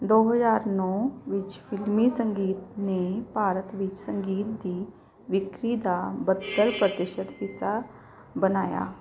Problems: background sounds at intervals